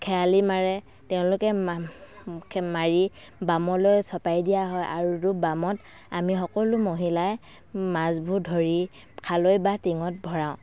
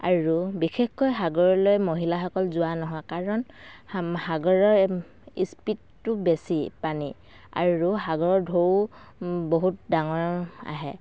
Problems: none marked